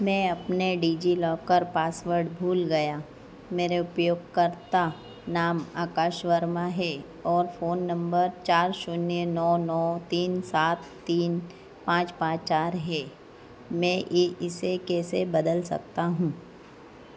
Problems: none marked